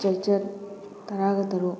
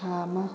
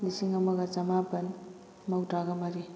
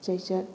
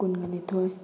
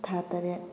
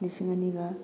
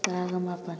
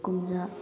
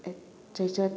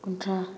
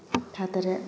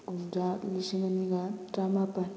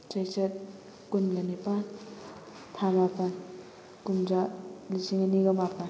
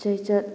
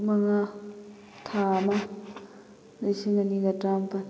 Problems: constant background noise, background conversations at intervals